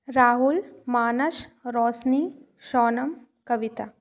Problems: background sounds at intervals, echo